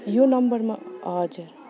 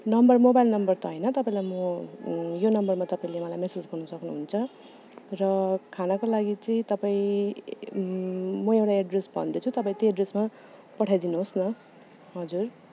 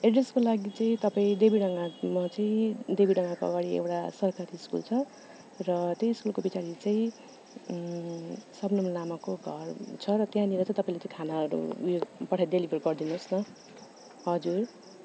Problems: constant background noise